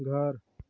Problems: none marked